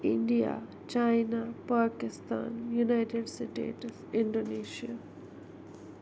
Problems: constant background noise, low volume